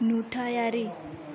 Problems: background sounds at intervals, background conversations at intervals